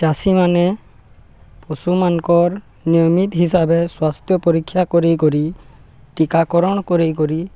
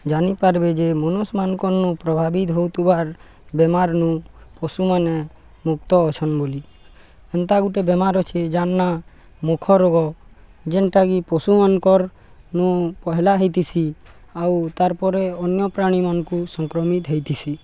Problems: none marked